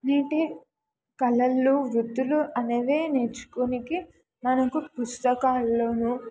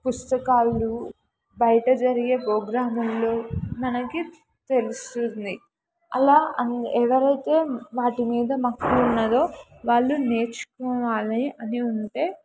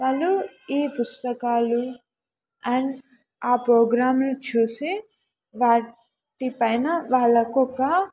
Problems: background conversations at intervals